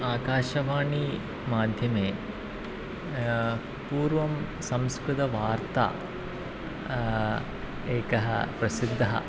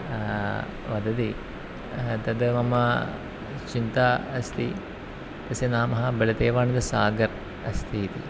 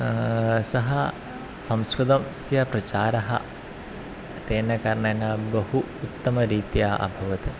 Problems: constant background noise